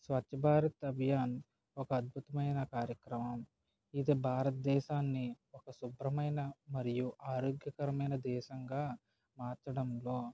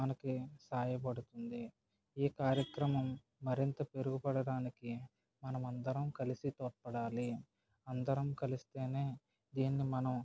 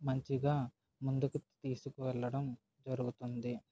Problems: none marked